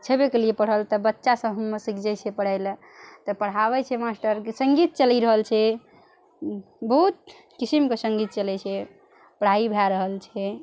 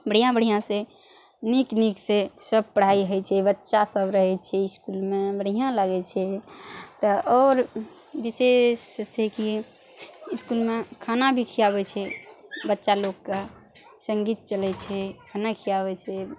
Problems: none marked